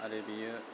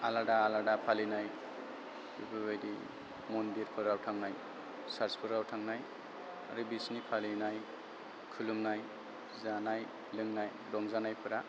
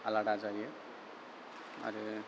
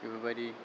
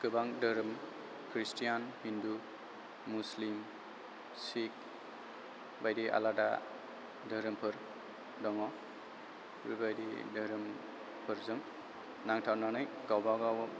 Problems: constant background noise